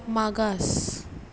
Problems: none marked